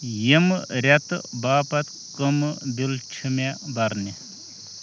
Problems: constant background noise